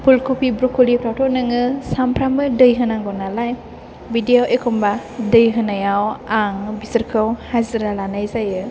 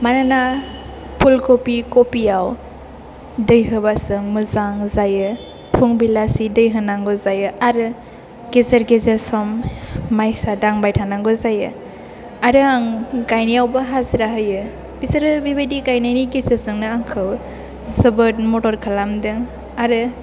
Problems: none marked